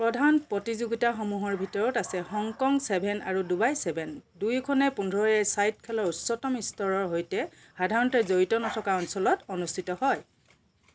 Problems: background sounds at intervals